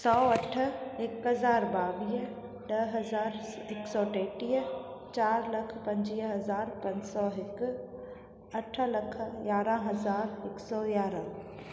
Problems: constant background noise, echo